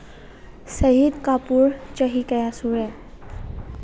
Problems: none marked